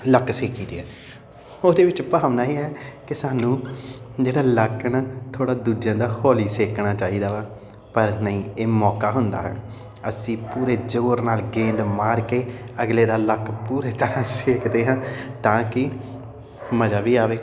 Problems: constant background noise